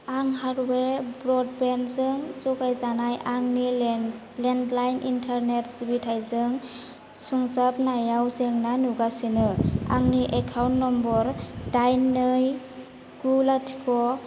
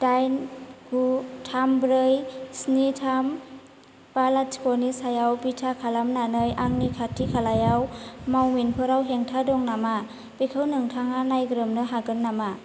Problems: none marked